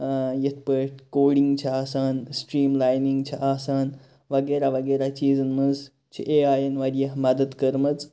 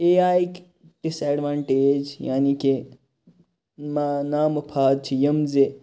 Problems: none marked